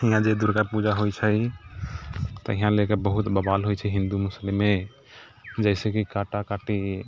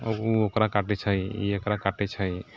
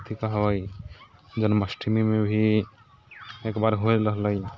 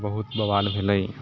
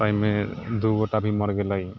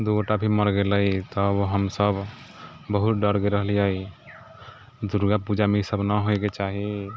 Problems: background sounds at intervals